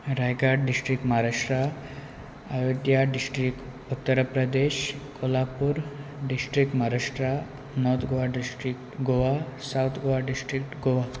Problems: none marked